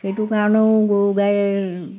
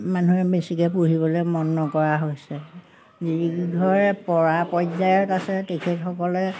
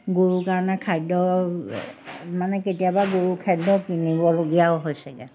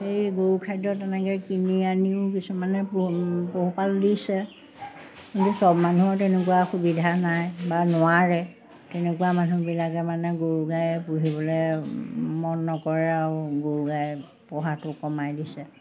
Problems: none marked